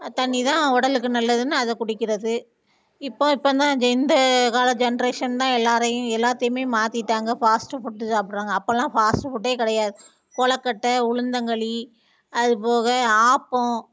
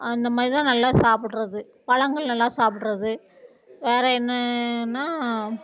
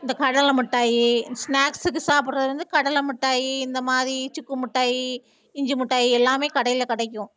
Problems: background conversations at intervals